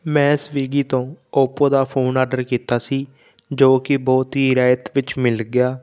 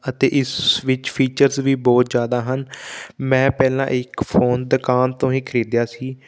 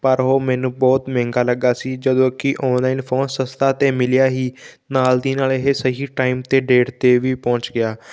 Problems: background sounds at intervals